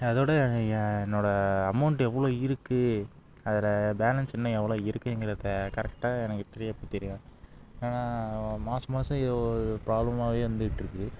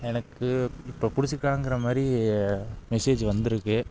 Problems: background sounds at intervals